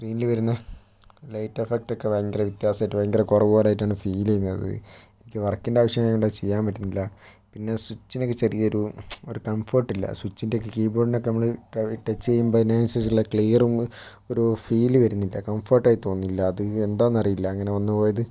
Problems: background sounds at intervals